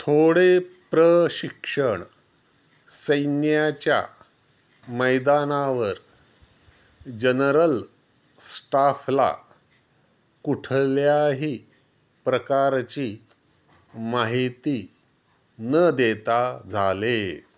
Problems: background sounds at intervals